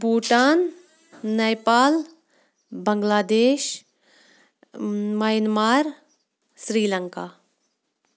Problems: background sounds at intervals